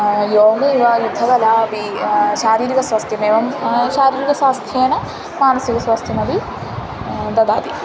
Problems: constant background noise